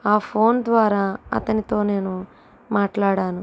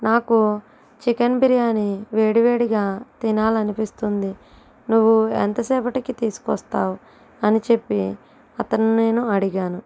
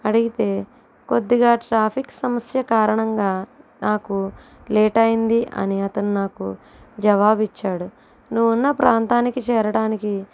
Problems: constant background noise